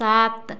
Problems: none marked